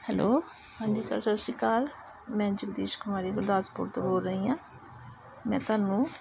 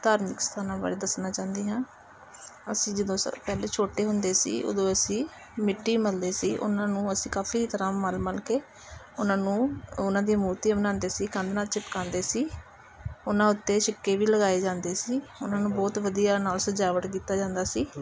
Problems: constant background noise, background conversations at intervals